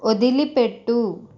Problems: constant background noise